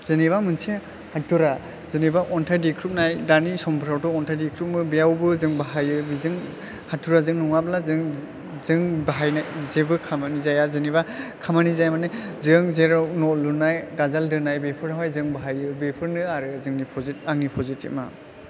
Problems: low volume